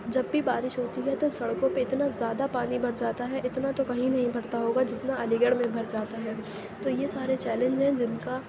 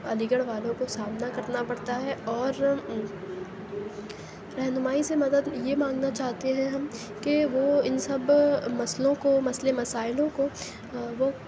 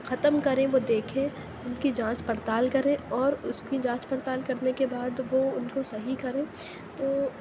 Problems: constant background noise, low volume